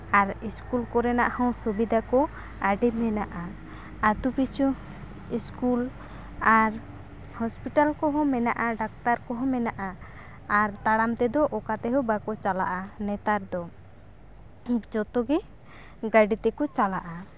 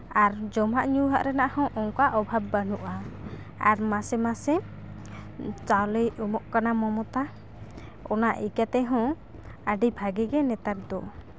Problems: constant background noise